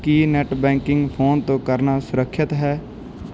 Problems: background sounds at intervals